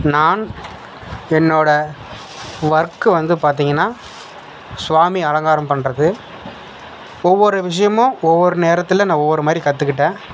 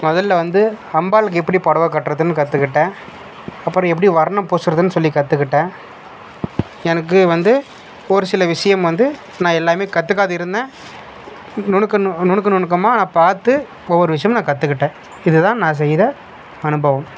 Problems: background sounds at intervals